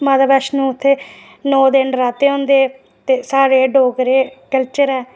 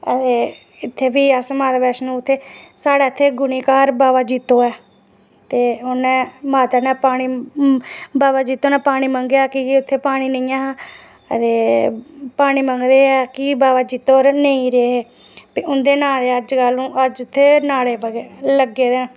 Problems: none marked